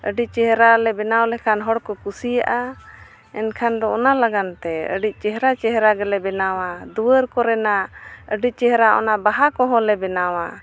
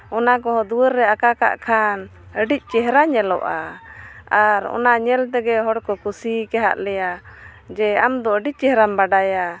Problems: constant background noise